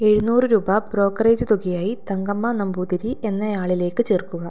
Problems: none marked